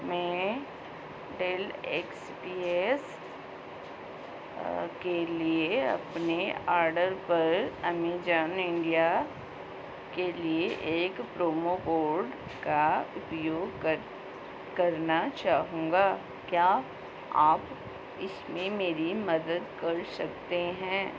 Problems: constant background noise